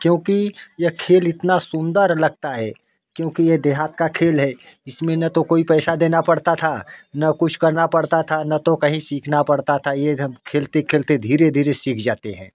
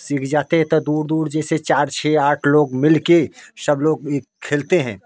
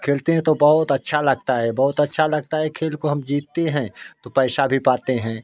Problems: constant background noise